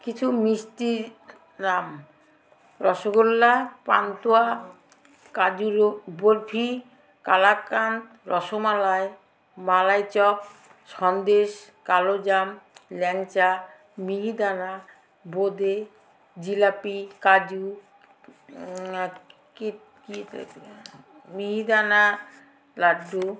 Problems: constant background noise